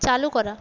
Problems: constant background noise